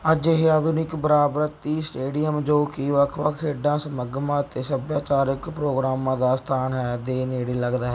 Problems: background sounds at intervals